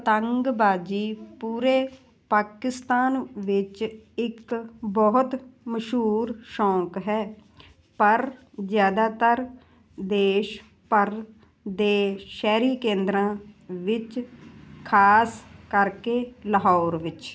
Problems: none marked